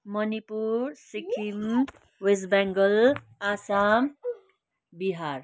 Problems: continuous background conversations